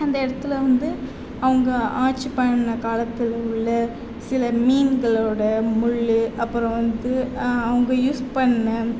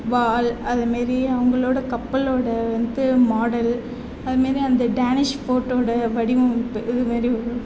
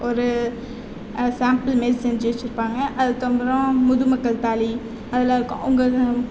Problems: background conversations at intervals